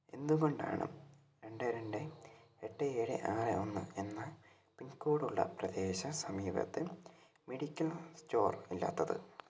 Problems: low volume